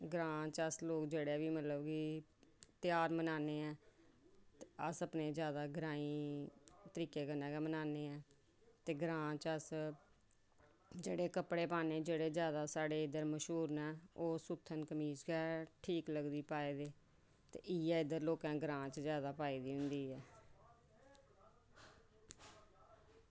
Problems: low volume